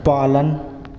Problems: constant background noise